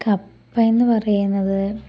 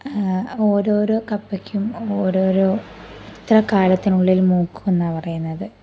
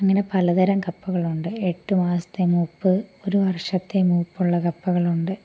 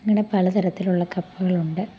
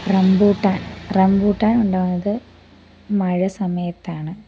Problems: none marked